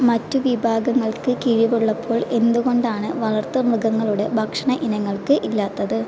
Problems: constant background noise